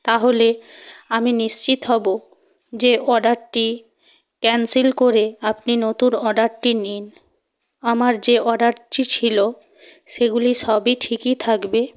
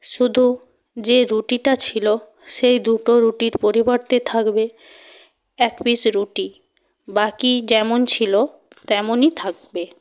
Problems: constant background noise